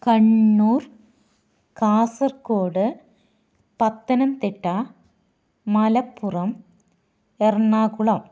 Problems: none marked